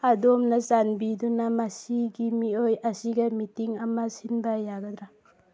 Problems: none marked